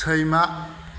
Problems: background sounds at intervals